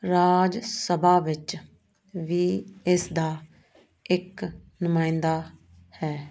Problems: constant background noise